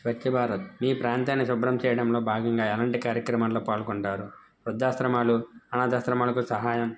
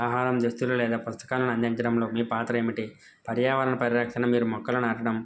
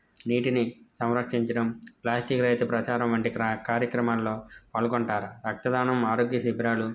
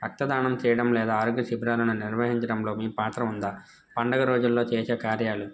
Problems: background sounds at intervals